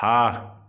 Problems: none marked